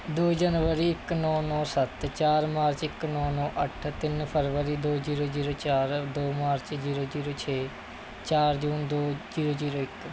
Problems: constant background noise